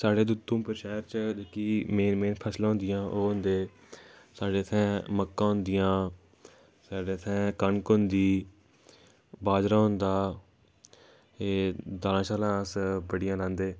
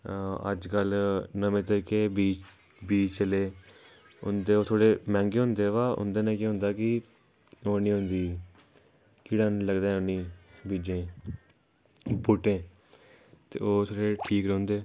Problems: background sounds at intervals